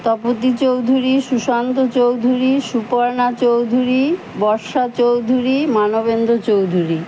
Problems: constant background noise